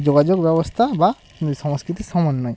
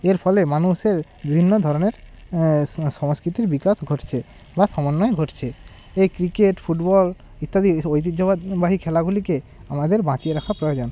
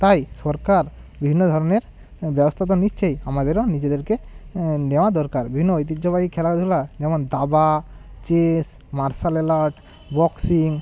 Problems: none marked